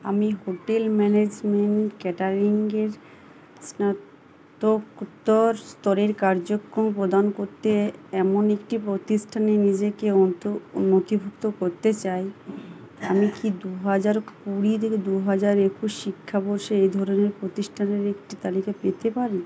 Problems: constant background noise, background conversations at intervals